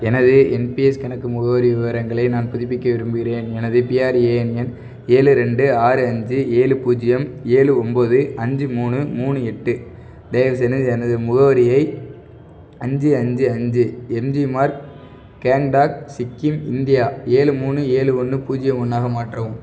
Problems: none marked